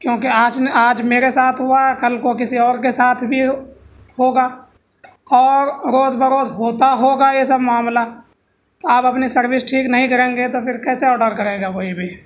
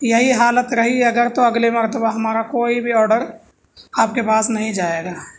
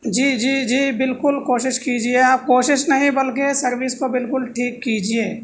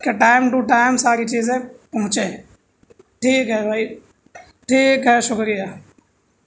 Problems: none marked